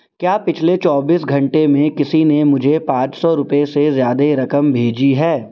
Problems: constant background noise